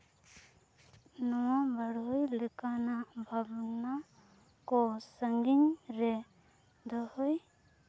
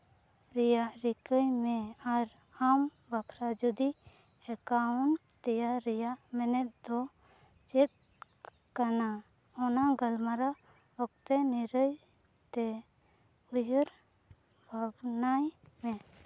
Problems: low volume